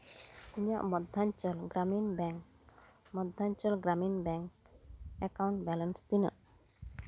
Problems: none marked